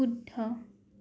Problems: none marked